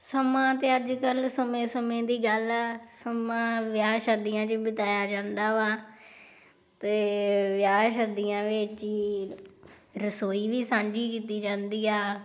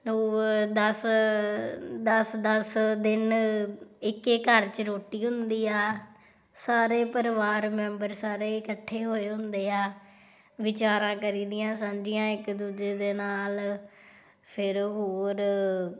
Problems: background sounds at intervals